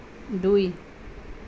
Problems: none marked